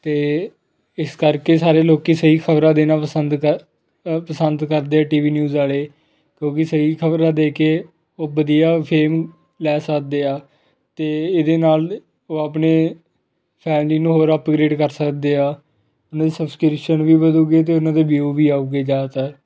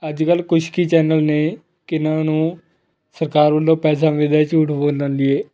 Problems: none marked